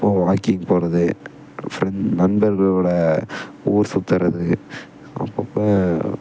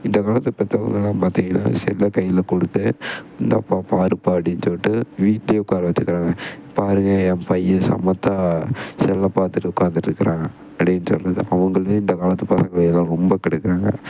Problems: background sounds at intervals